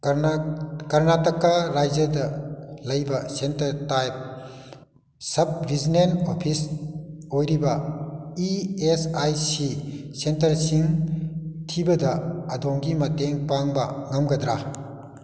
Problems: echo